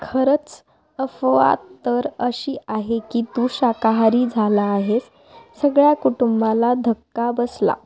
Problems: constant background noise, continuous background conversations